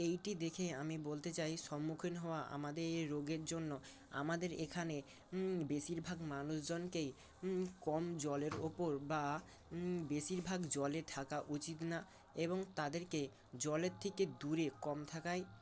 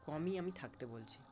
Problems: constant background noise